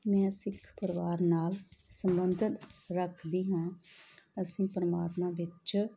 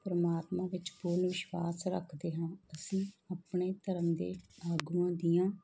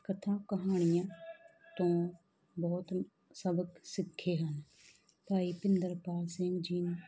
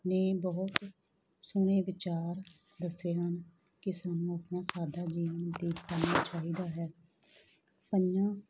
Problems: background conversations at intervals